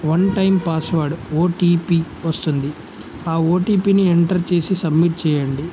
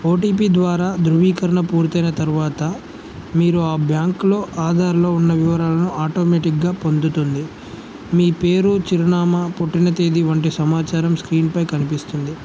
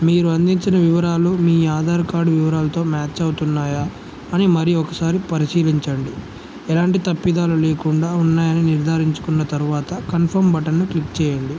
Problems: none marked